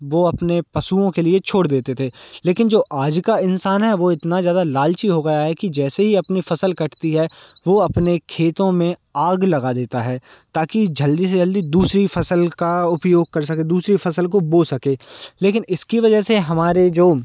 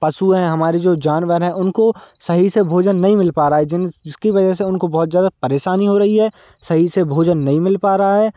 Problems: constant background noise